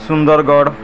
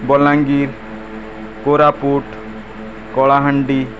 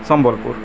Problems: none marked